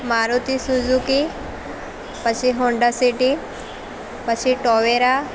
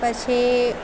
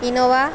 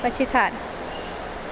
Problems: constant background noise